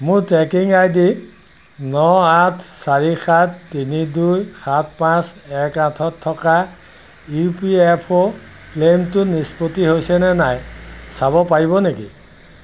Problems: none marked